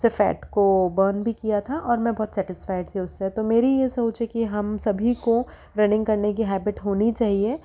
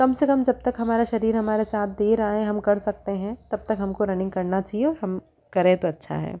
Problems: none marked